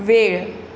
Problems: constant background noise